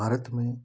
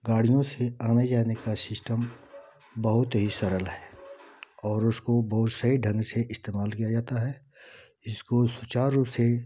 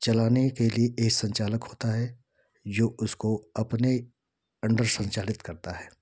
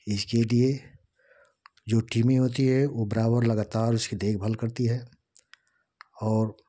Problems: constant background noise